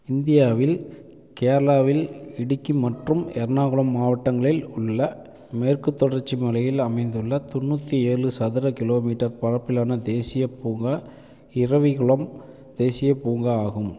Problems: none marked